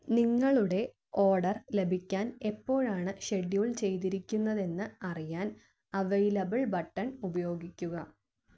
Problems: low volume